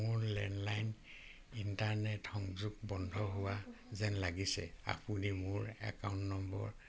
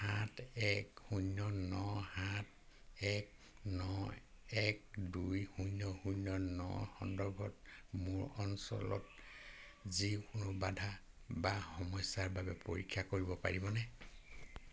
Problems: constant background noise